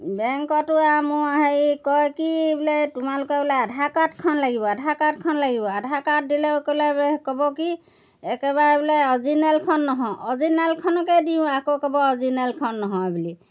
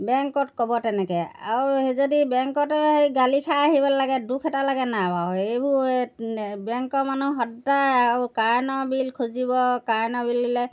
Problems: background sounds at intervals